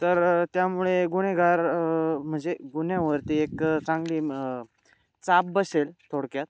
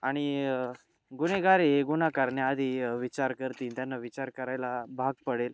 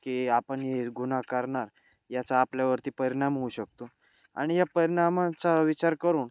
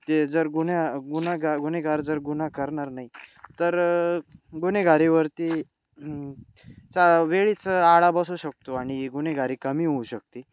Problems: constant background noise